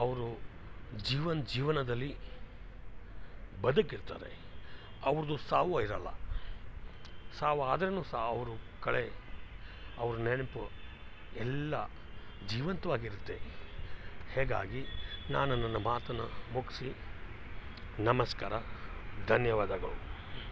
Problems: background sounds at intervals